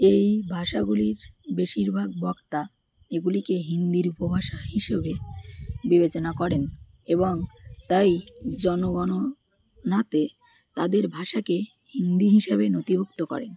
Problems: none marked